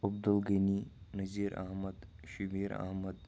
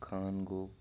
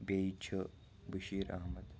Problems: background sounds at intervals, low volume